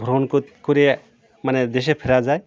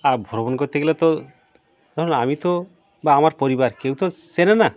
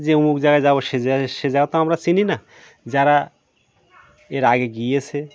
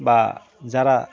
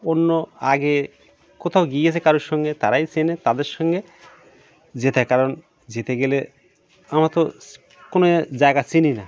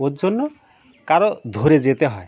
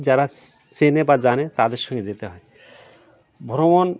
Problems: none marked